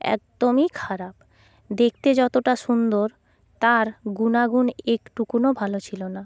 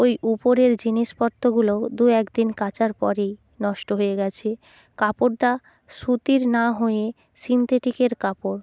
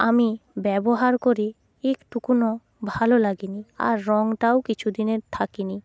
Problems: constant background noise